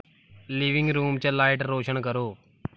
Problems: background sounds at intervals